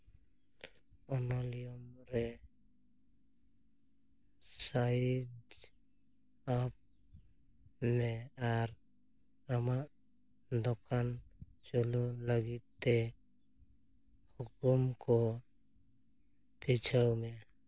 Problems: low volume